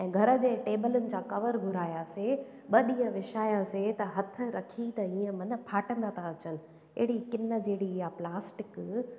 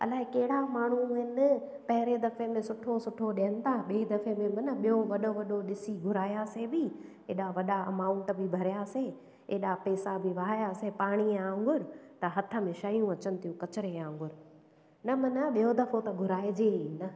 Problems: echo